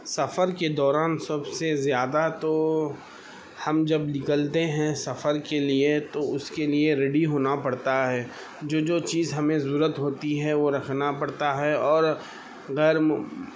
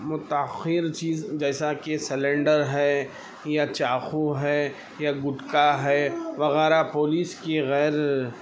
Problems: constant background noise, background conversations at intervals